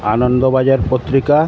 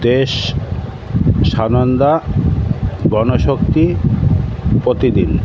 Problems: constant background noise